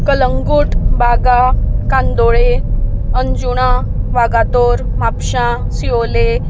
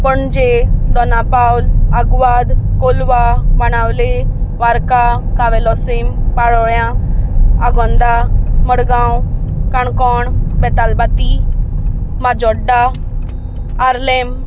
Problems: constant background noise